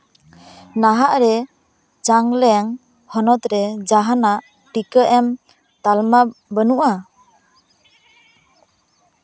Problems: constant background noise, background conversations at intervals